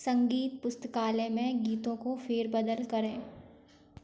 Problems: background sounds at intervals